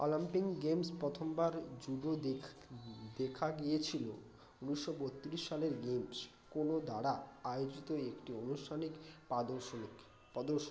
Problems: constant background noise, continuous background conversations